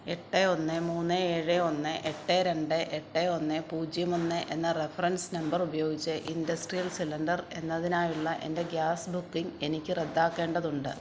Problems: background sounds at intervals